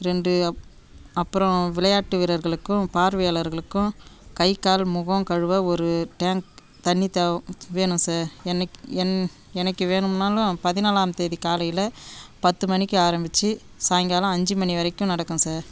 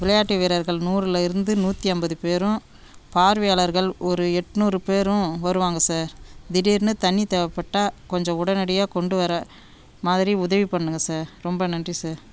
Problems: background sounds at intervals